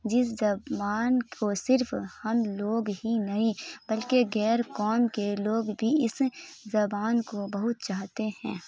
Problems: none marked